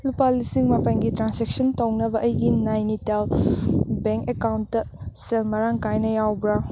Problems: constant background noise